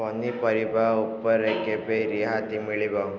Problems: constant background noise